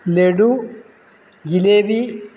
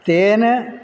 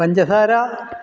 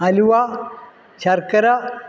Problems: none marked